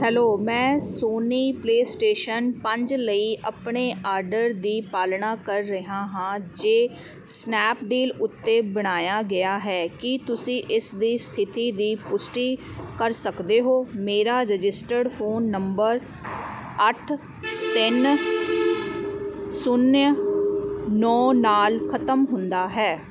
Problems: constant background noise